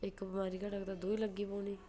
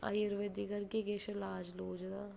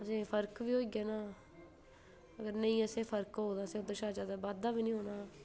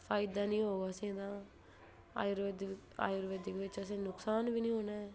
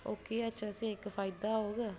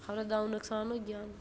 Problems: low volume